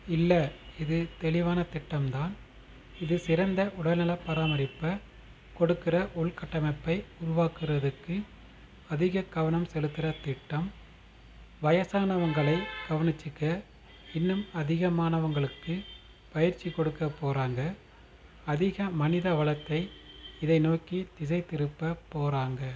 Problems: constant background noise